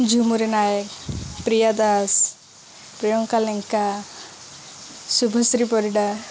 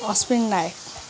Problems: background conversations at intervals